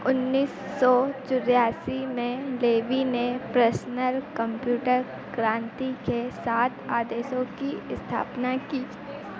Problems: constant background noise